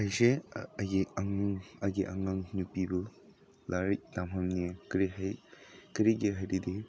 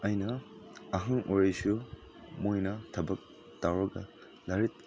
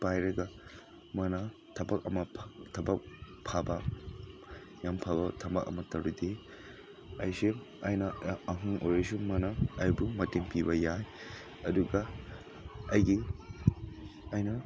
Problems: background sounds at intervals